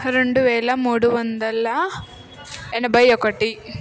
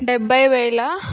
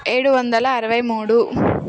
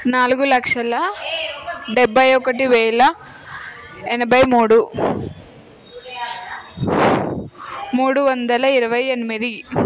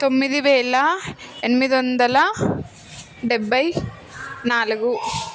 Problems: constant background noise, continuous background conversations